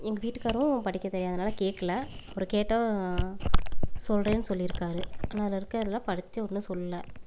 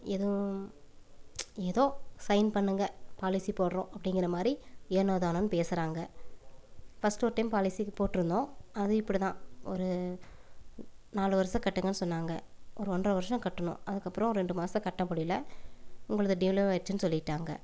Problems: background sounds at intervals, low volume